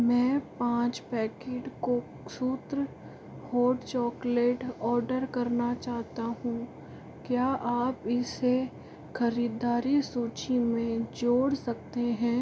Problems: none marked